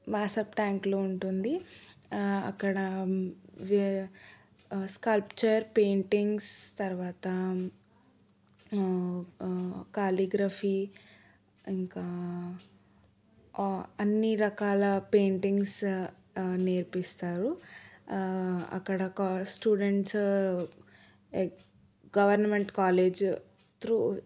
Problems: none marked